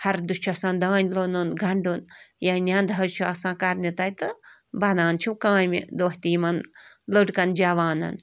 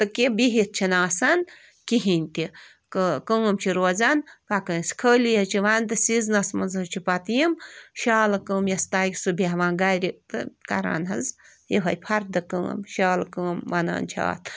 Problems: none marked